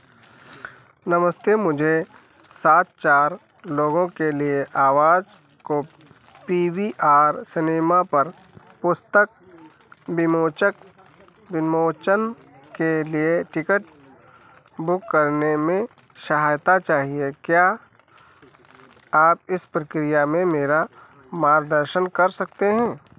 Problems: background sounds at intervals